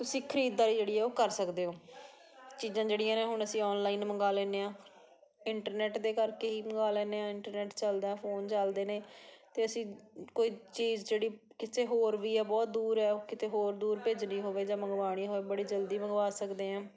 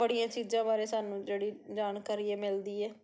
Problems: background conversations at intervals